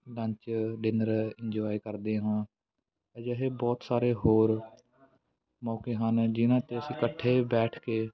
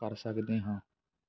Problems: background sounds at intervals, background conversations at intervals